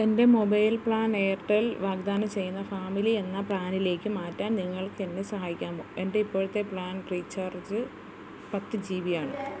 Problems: constant background noise, low volume